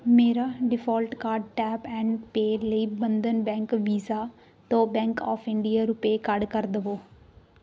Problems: none marked